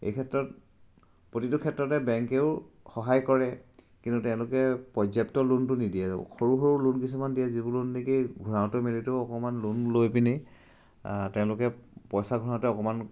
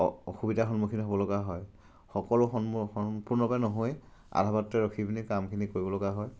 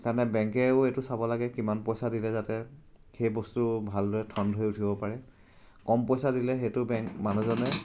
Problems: none marked